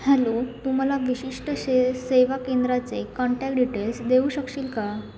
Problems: none marked